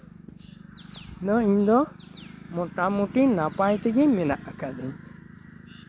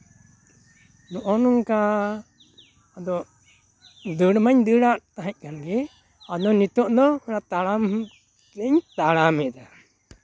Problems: background sounds at intervals, background conversations at intervals